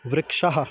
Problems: none marked